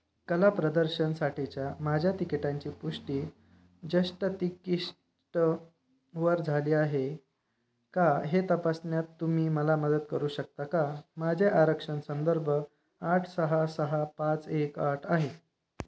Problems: none marked